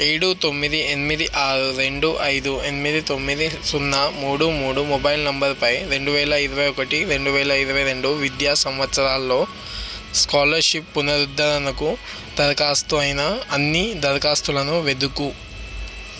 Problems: constant background noise